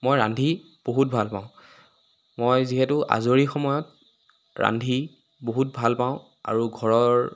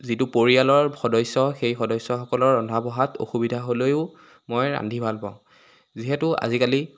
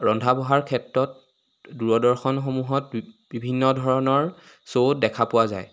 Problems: constant background noise